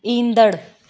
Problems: none marked